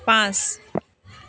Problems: background conversations at intervals